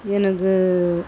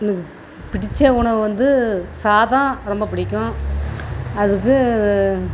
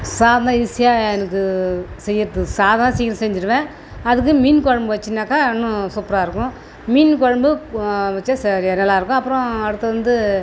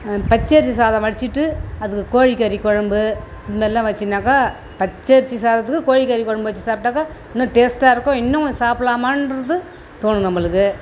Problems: constant background noise